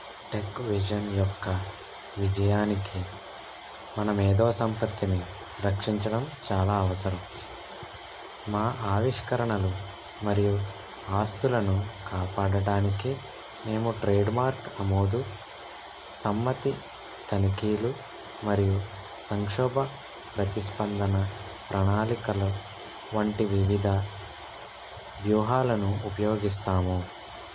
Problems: constant background noise